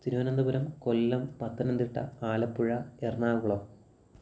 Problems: none marked